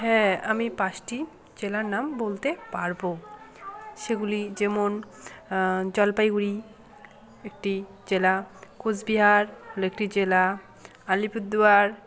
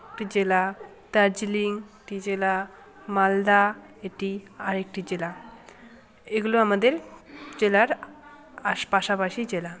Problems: none marked